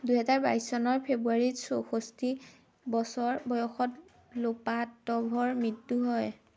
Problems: constant background noise